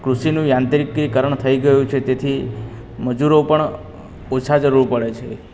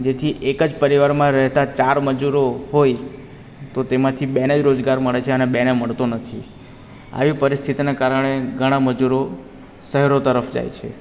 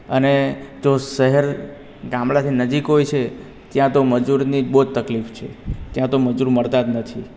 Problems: none marked